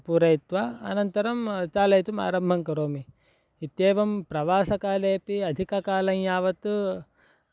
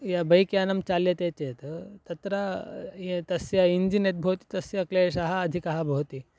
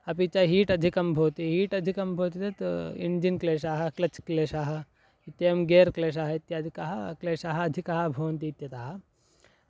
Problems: none marked